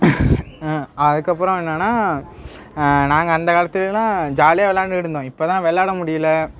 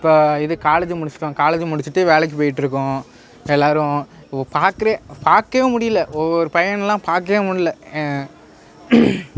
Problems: background sounds at intervals